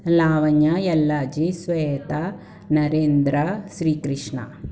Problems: none marked